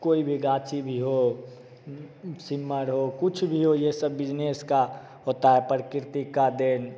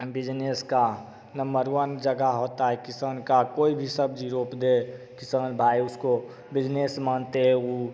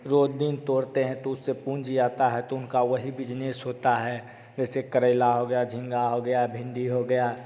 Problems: none marked